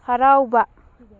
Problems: background sounds at intervals